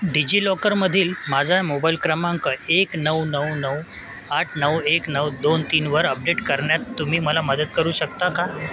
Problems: constant background noise, background conversations at intervals